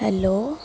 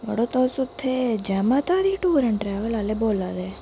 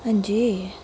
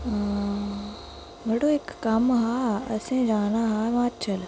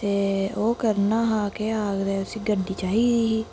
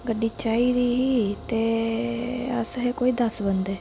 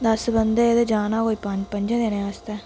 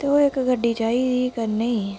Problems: constant background noise